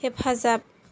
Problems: none marked